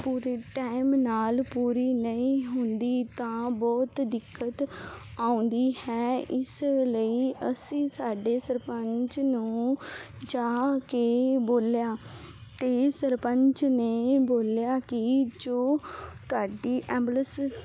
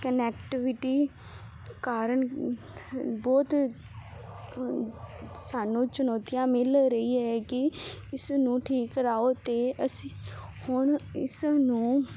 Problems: background sounds at intervals